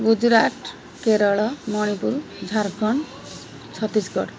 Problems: constant background noise, continuous background conversations